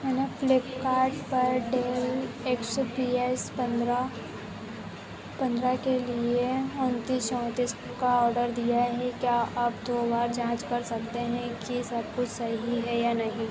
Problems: constant background noise